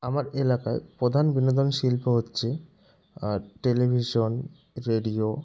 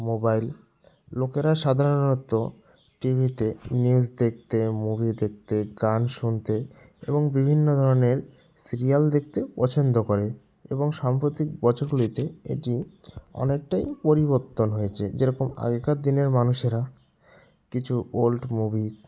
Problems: none marked